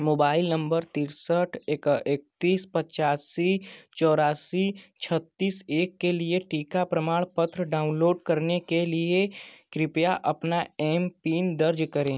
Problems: constant background noise